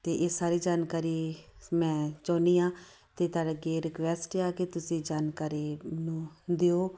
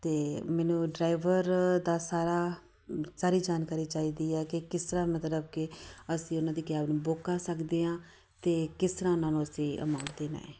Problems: none marked